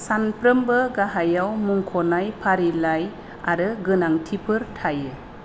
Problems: none marked